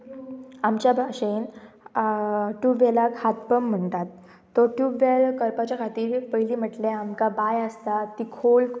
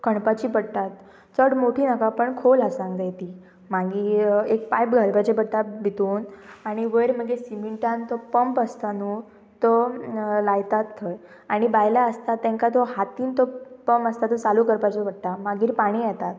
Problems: constant background noise, background conversations at intervals